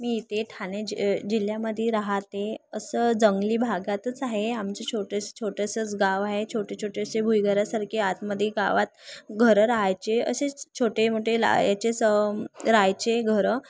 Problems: none marked